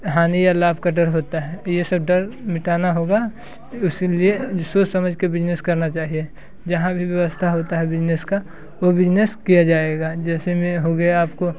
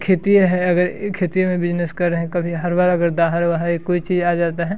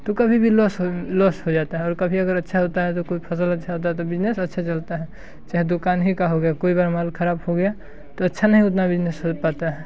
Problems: constant background noise